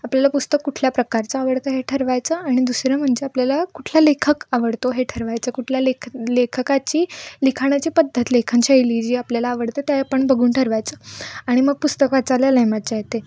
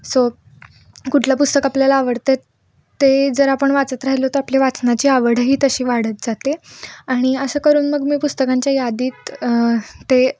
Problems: background sounds at intervals